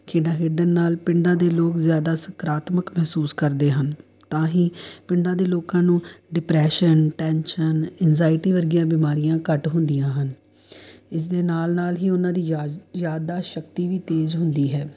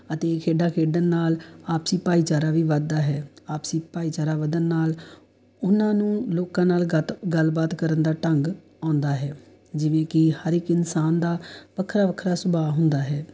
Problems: background sounds at intervals